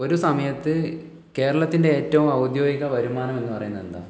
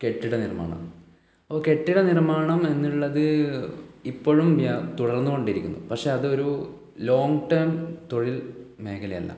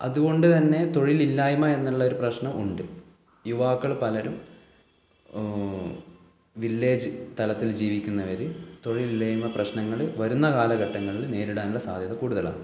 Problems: low volume